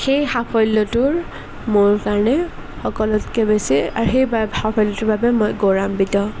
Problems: none marked